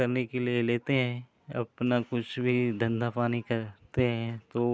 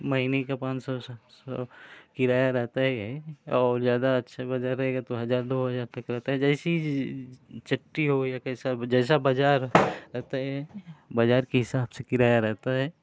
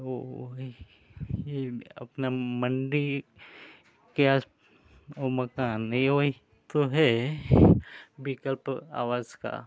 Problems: constant background noise